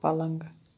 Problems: none marked